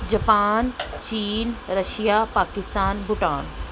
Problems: constant background noise